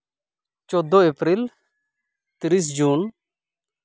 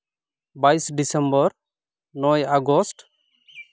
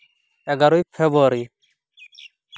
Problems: background sounds at intervals